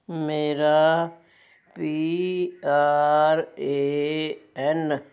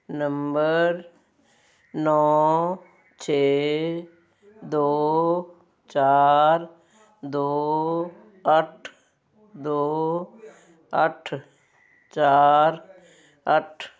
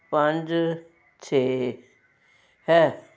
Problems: constant background noise